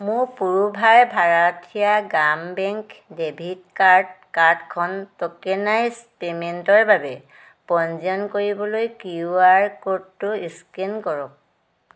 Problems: none marked